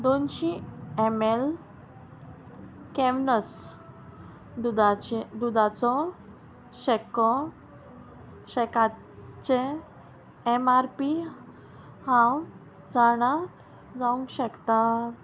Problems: constant background noise